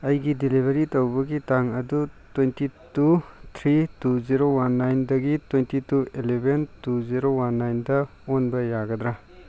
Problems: background conversations at intervals